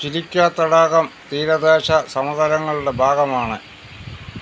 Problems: none marked